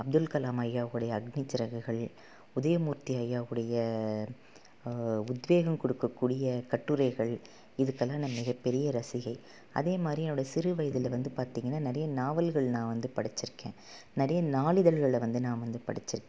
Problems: none marked